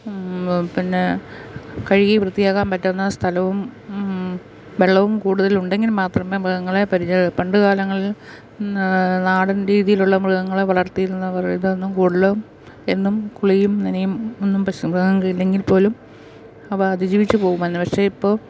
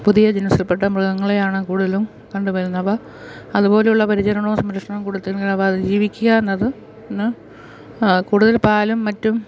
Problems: background sounds at intervals